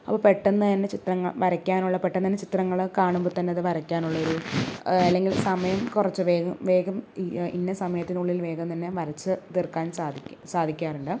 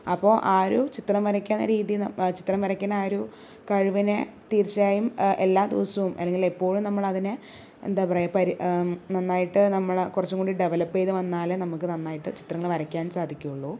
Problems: low volume